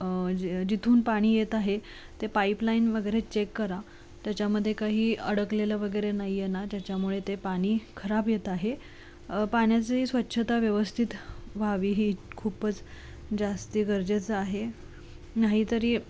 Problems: constant background noise